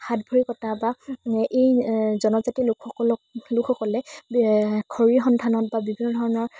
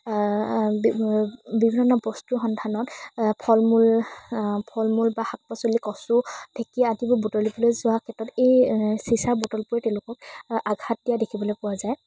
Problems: constant background noise